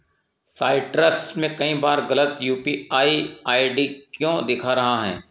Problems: none marked